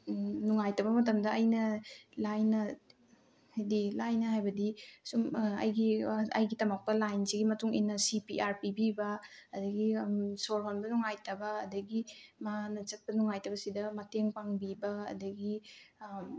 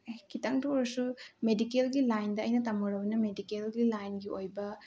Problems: background conversations at intervals